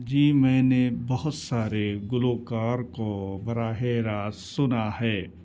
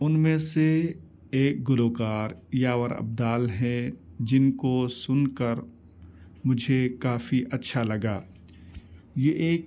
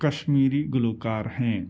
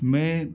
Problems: background sounds at intervals